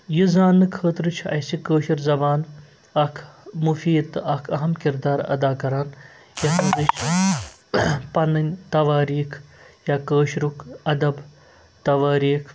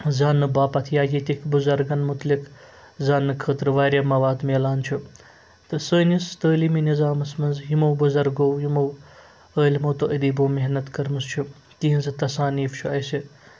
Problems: background sounds at intervals